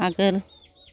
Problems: constant background noise